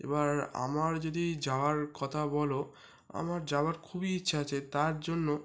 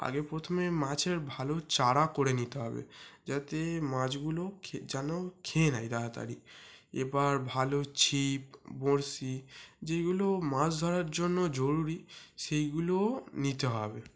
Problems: background sounds at intervals